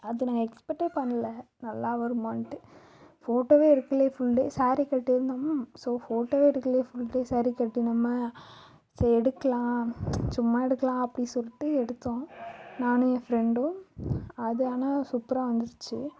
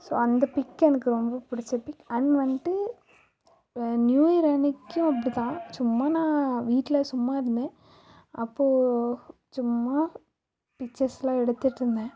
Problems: background sounds at intervals